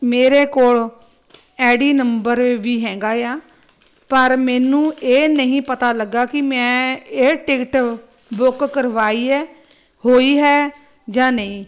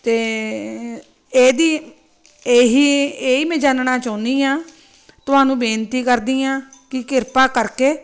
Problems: constant background noise